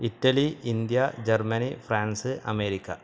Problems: constant background noise